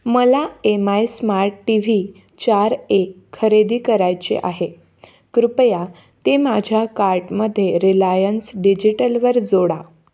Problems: none marked